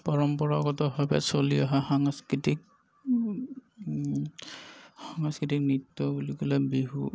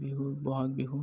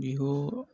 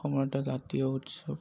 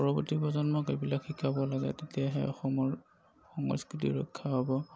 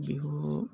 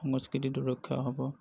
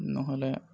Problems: none marked